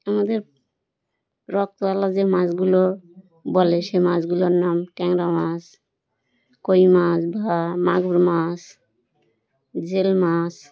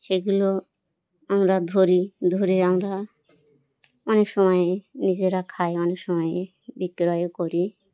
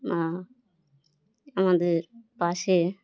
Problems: none marked